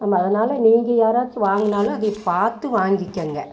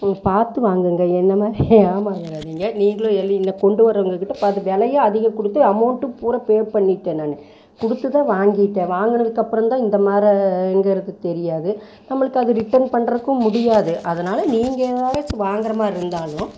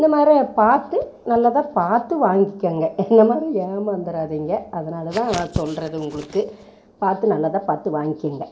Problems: background sounds at intervals